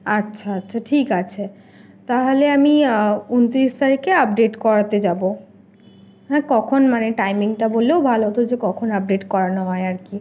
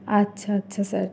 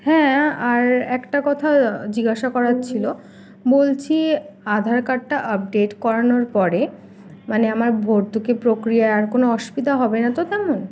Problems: constant background noise